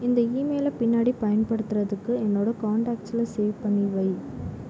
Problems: low volume